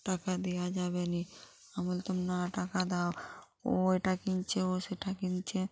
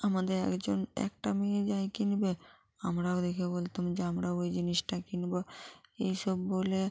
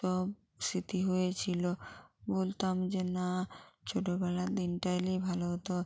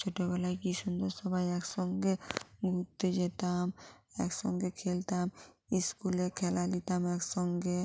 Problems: constant background noise